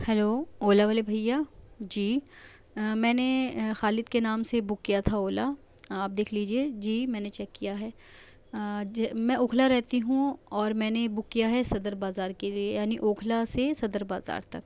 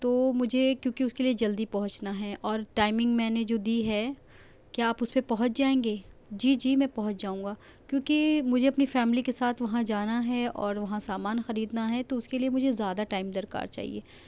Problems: low volume